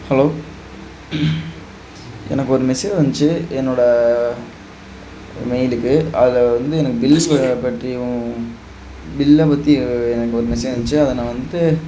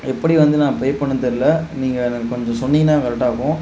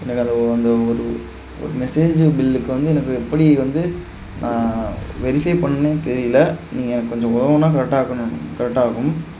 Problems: background sounds at intervals